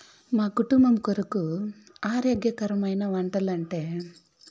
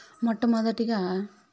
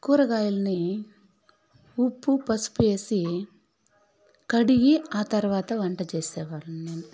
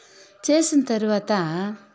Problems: background sounds at intervals, background conversations at intervals